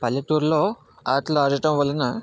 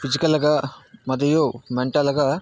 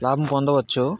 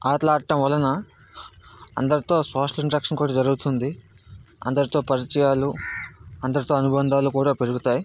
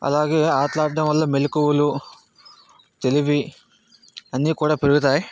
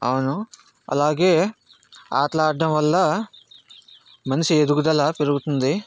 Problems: background sounds at intervals